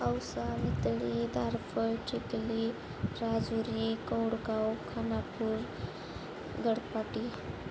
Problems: none marked